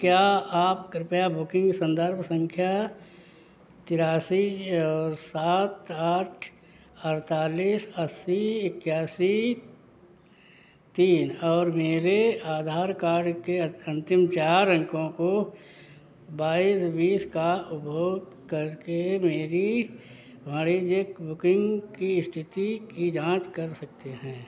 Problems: background sounds at intervals